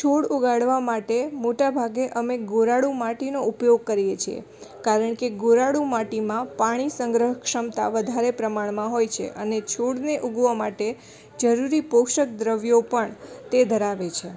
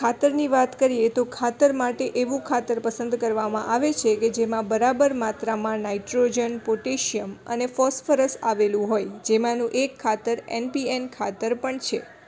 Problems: background conversations at intervals